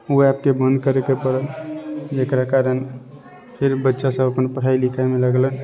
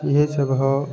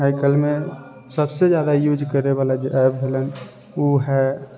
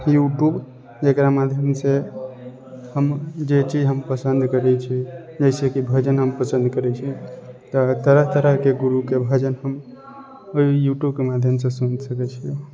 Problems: none marked